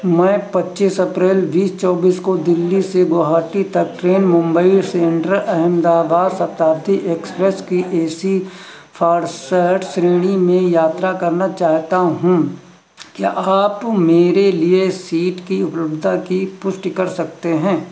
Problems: none marked